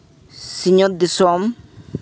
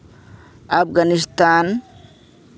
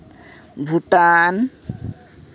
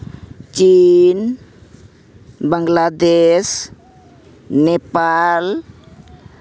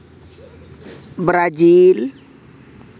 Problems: constant background noise